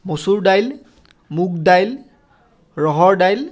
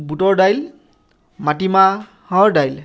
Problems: constant background noise